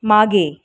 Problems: background sounds at intervals